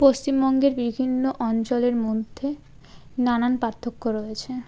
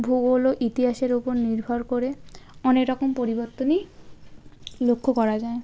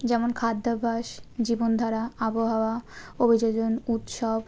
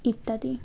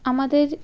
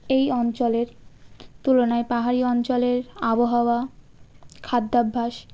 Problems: constant background noise, background conversations at intervals